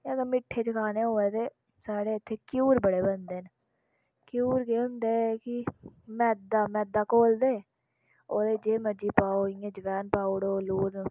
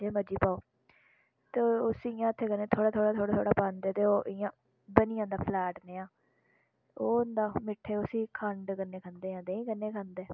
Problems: background sounds at intervals